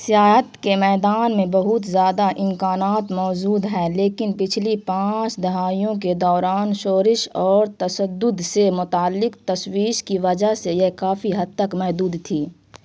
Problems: constant background noise